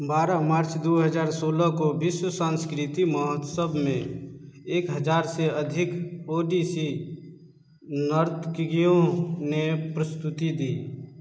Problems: none marked